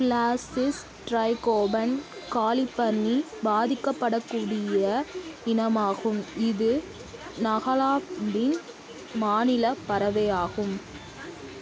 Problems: constant background noise, continuous background conversations